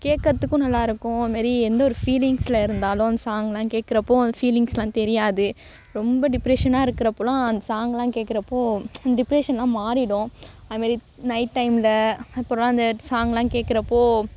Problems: background sounds at intervals